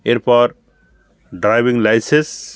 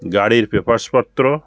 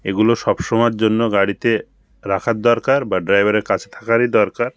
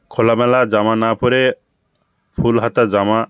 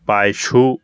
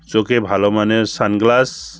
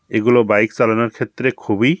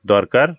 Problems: background sounds at intervals, background conversations at intervals